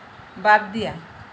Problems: constant background noise